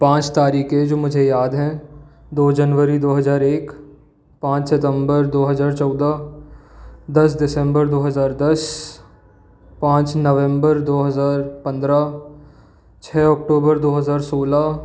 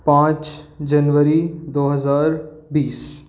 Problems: none marked